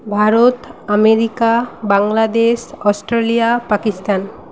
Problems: constant background noise